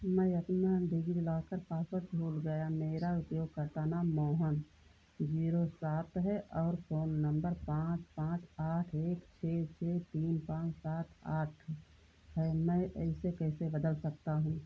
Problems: constant background noise, low volume